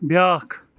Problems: none marked